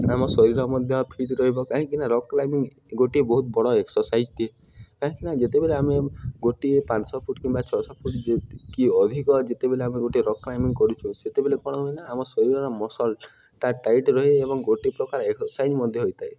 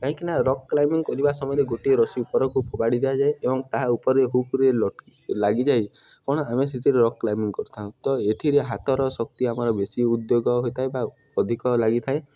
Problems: background sounds at intervals